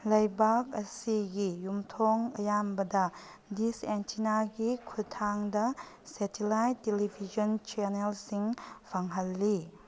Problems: none marked